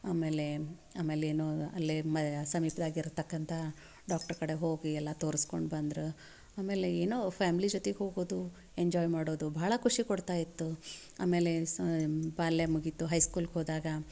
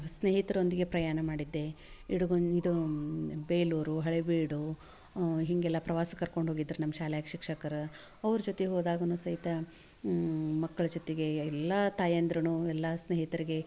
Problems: none marked